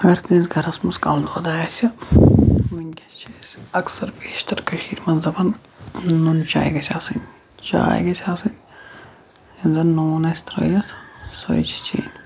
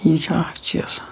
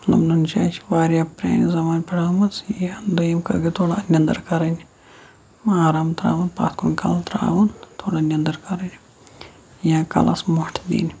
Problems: constant background noise